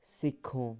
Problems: background sounds at intervals